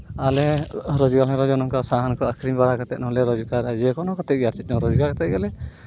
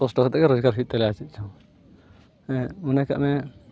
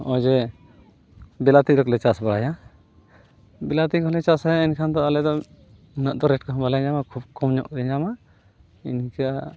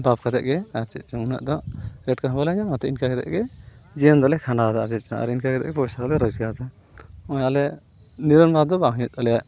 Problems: none marked